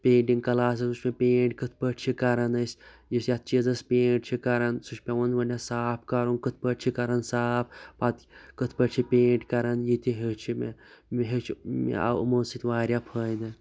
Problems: constant background noise